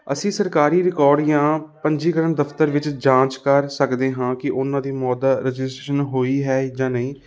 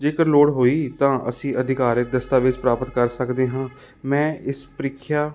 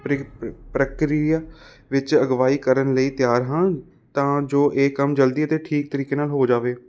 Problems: constant background noise